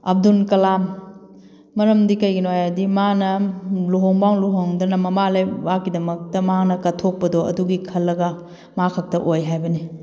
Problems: none marked